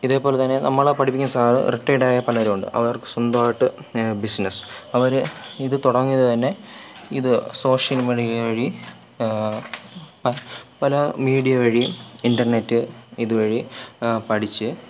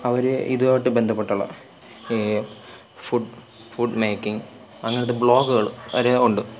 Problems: none marked